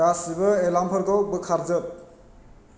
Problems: constant background noise